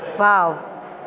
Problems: constant background noise